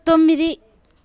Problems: constant background noise, continuous background conversations